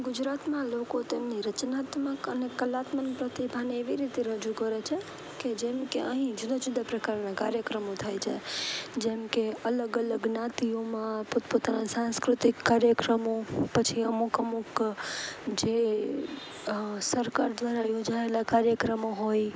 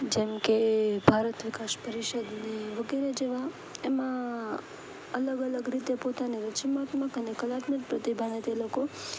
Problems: constant background noise